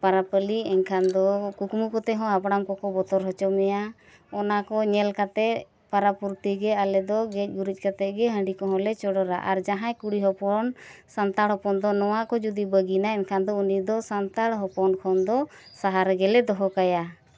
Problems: none marked